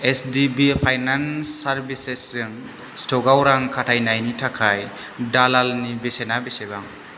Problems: constant background noise